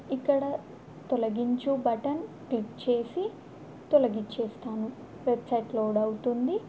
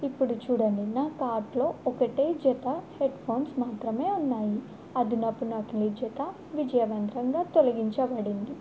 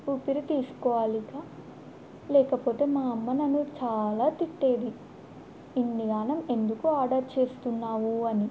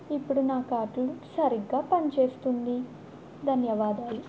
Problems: constant background noise